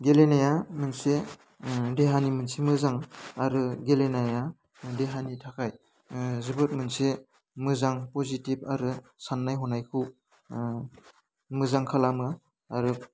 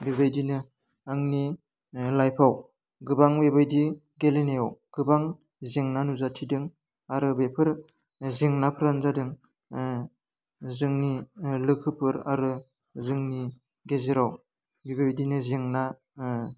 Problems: constant background noise